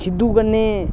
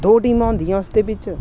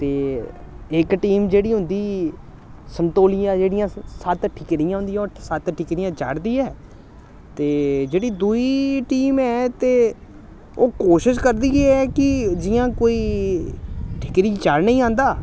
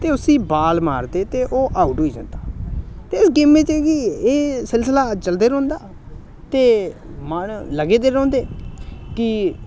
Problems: constant background noise